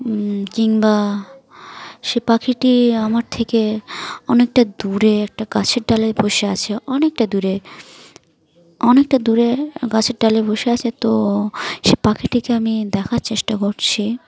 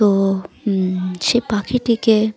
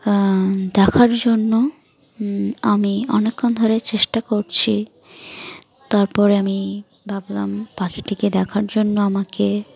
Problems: continuous background conversations